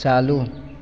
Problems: constant background noise, echo